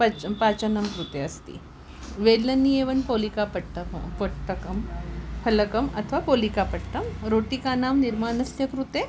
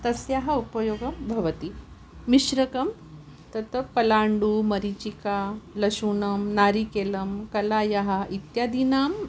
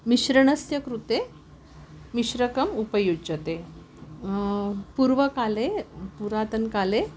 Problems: background sounds at intervals